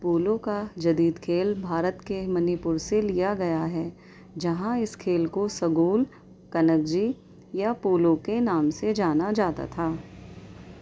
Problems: background sounds at intervals, background conversations at intervals